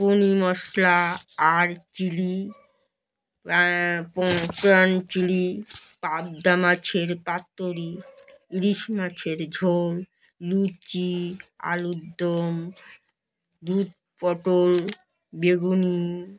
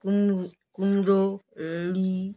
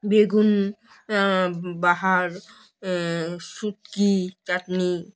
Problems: none marked